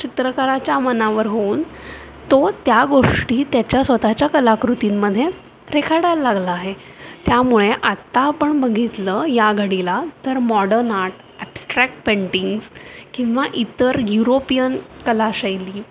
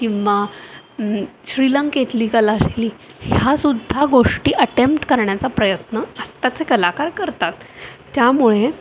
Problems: constant background noise, background conversations at intervals